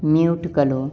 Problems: background sounds at intervals